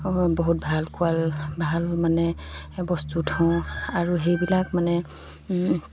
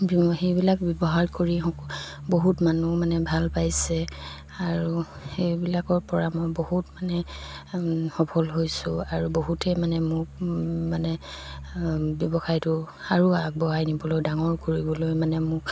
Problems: background sounds at intervals